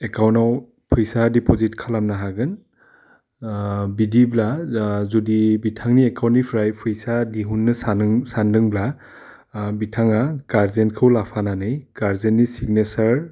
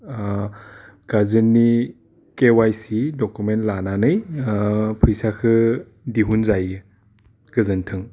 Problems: none marked